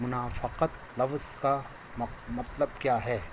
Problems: constant background noise